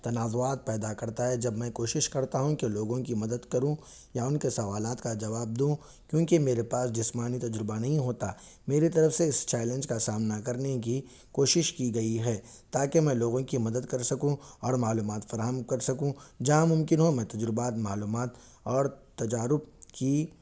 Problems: none marked